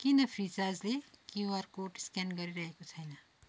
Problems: none marked